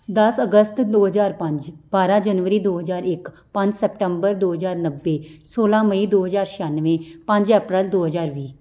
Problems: none marked